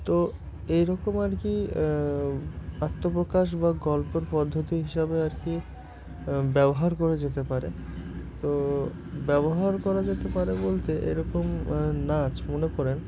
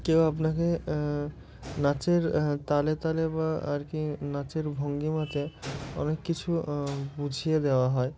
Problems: none marked